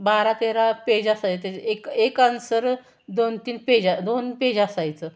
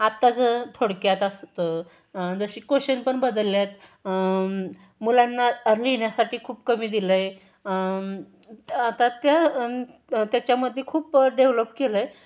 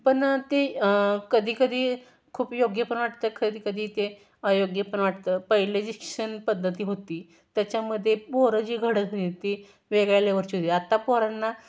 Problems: none marked